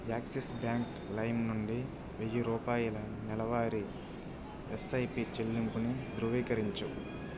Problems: constant background noise, low volume